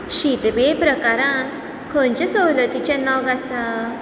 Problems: constant background noise